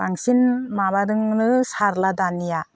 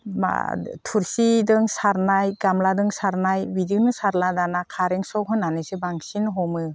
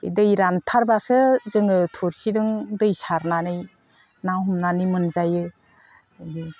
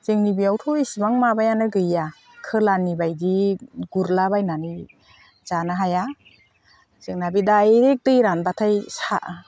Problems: constant background noise